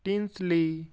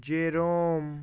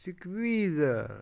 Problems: background sounds at intervals